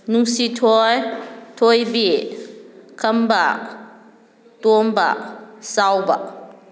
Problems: none marked